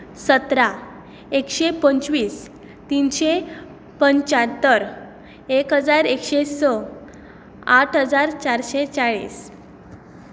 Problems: background sounds at intervals